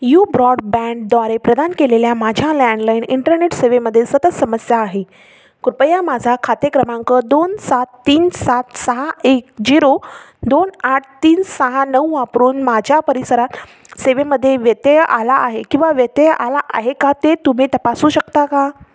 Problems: background sounds at intervals